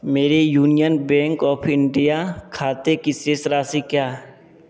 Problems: none marked